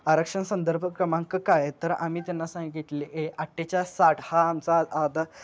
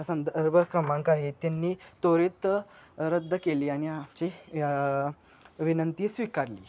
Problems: background sounds at intervals